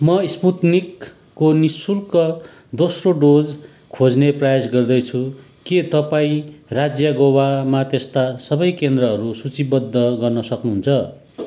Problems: constant background noise